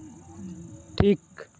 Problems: constant background noise, continuous background conversations